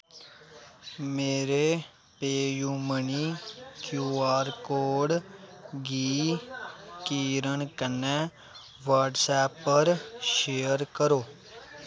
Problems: constant background noise